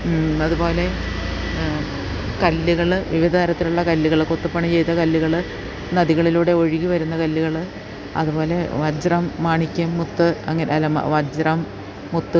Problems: none marked